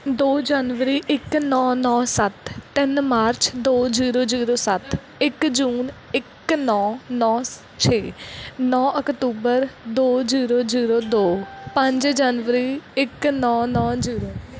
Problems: background sounds at intervals